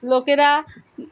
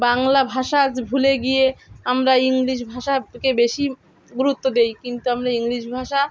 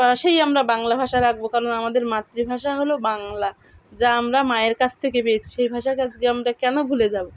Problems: none marked